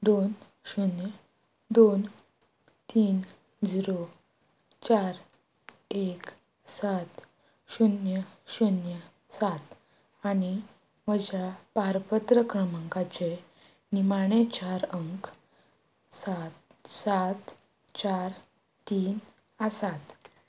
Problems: none marked